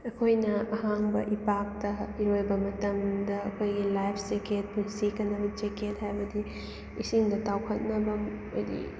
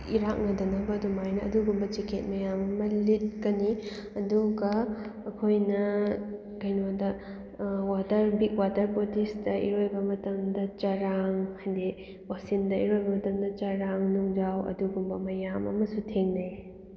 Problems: background sounds at intervals